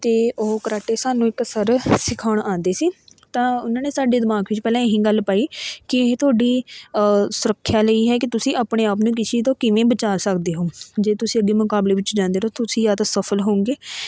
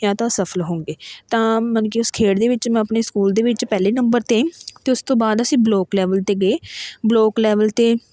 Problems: none marked